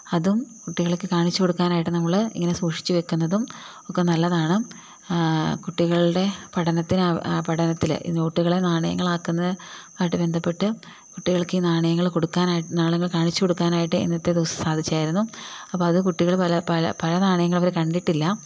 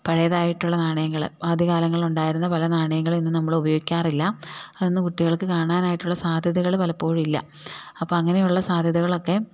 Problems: none marked